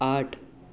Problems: none marked